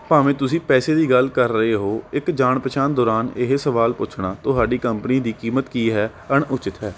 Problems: none marked